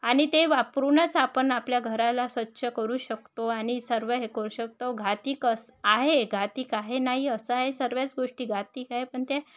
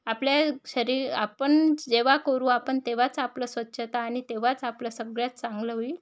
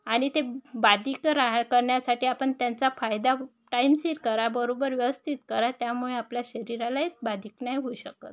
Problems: background sounds at intervals, background conversations at intervals